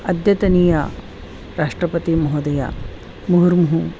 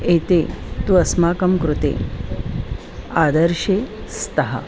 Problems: constant background noise, continuous background conversations